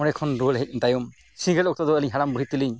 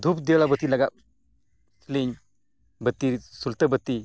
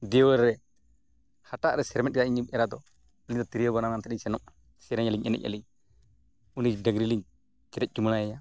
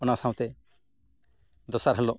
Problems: none marked